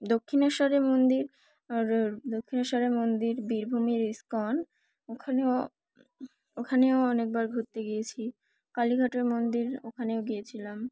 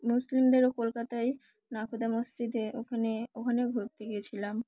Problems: none marked